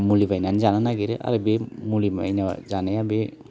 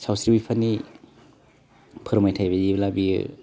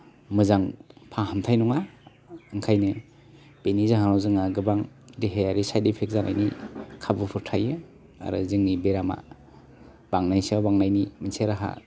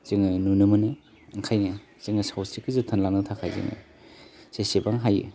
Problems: none marked